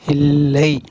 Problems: none marked